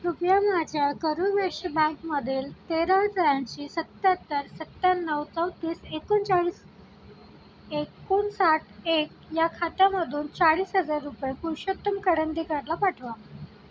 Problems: none marked